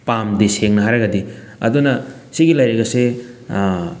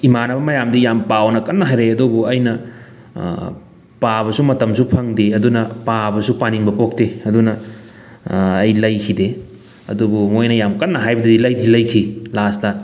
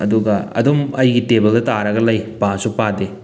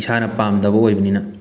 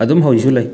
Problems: none marked